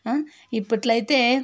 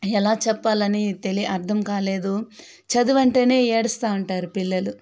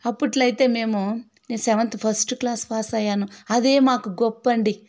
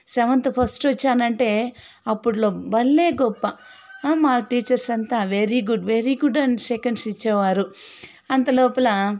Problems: background sounds at intervals, background conversations at intervals